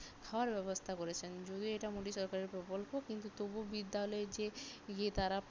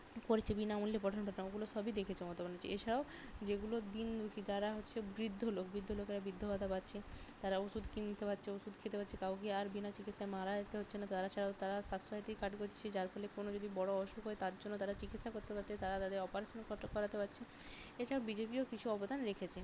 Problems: none marked